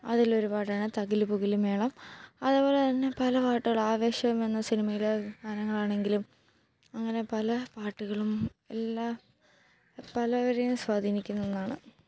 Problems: low volume